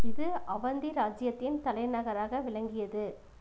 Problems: constant background noise